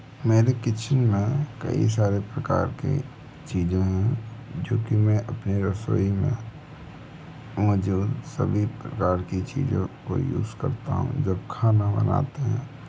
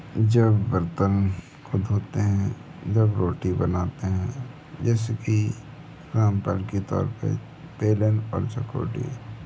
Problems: constant background noise